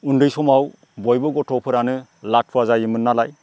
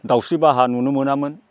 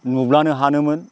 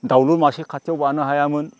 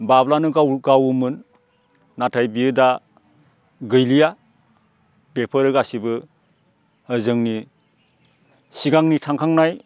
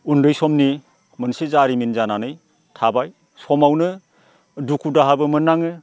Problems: none marked